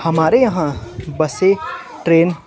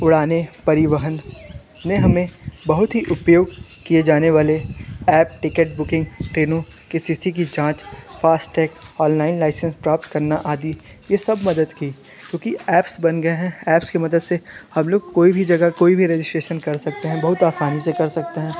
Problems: background conversations at intervals